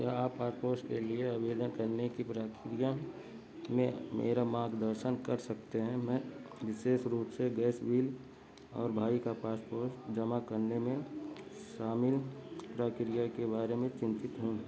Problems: constant background noise, low volume